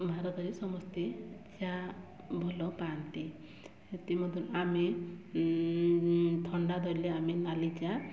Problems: none marked